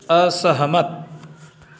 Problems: constant background noise